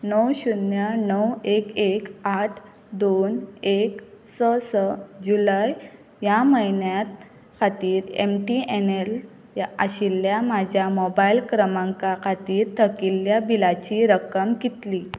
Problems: constant background noise